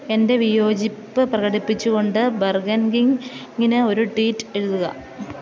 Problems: background sounds at intervals